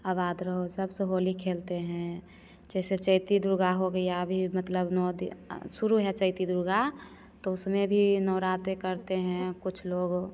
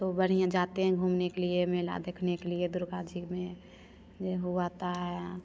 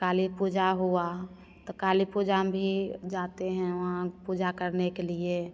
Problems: constant background noise, echo